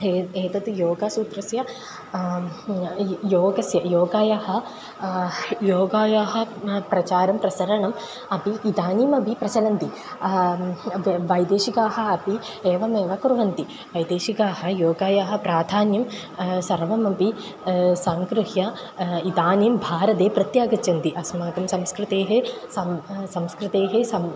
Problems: constant background noise